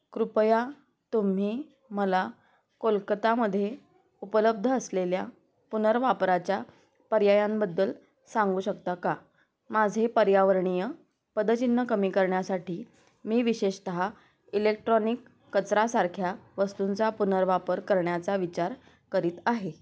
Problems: none marked